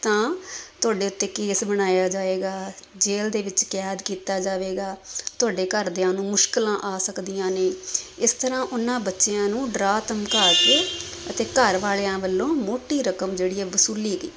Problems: background sounds at intervals